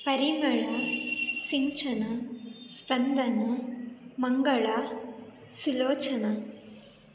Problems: background sounds at intervals